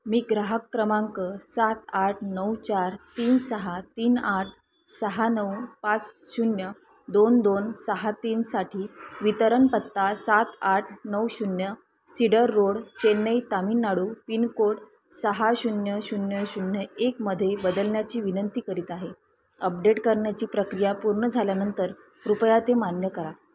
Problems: constant background noise, background conversations at intervals